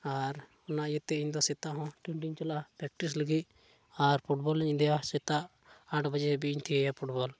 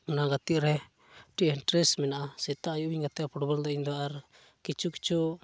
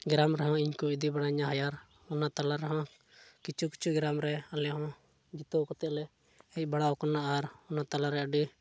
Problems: none marked